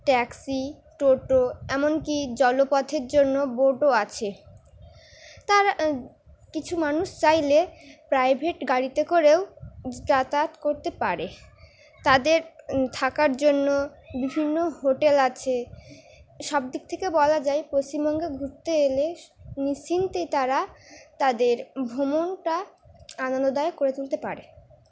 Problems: background sounds at intervals